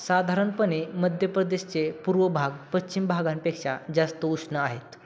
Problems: none marked